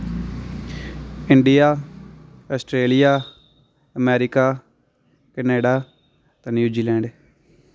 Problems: constant background noise